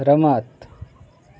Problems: constant background noise, background conversations at intervals